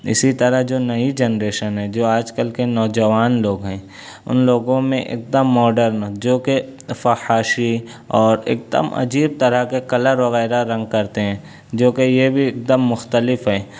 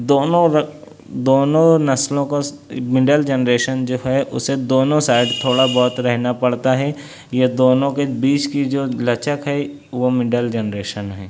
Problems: background sounds at intervals